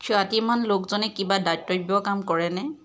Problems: none marked